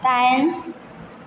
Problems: constant background noise